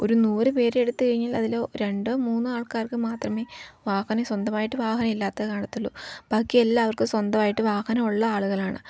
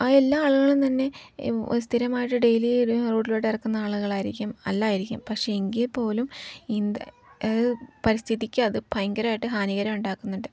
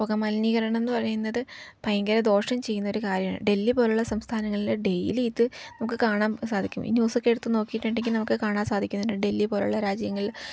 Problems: background sounds at intervals, low volume